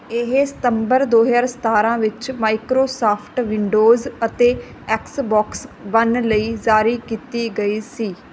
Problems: none marked